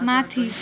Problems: constant background noise